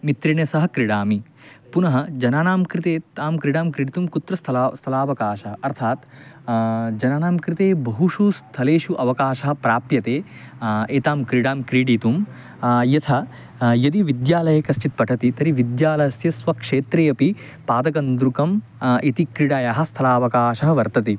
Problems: none marked